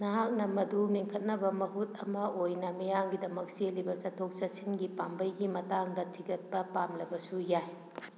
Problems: none marked